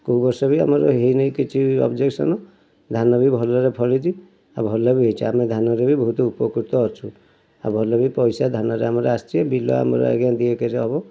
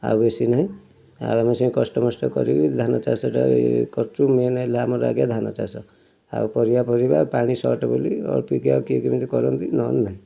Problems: none marked